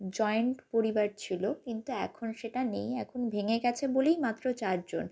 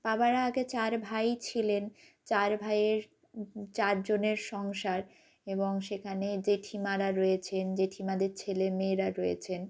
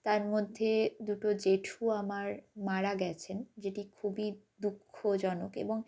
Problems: constant background noise